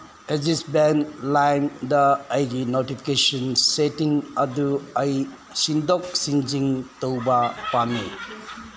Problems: constant background noise